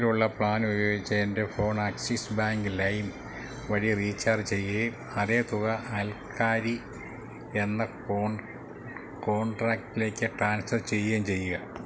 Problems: low volume